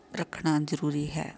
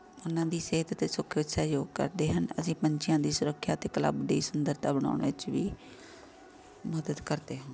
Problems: constant background noise